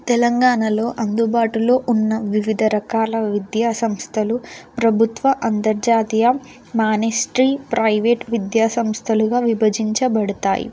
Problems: constant background noise